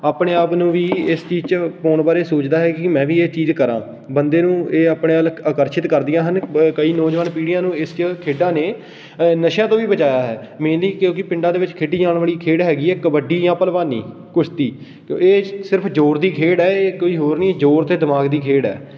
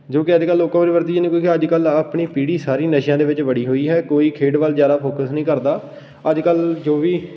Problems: background sounds at intervals